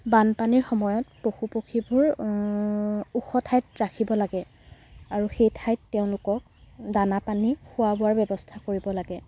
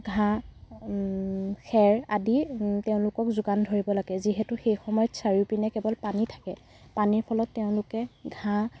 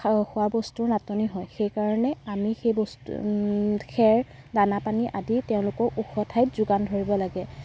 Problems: none marked